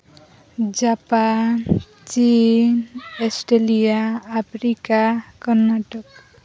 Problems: continuous background conversations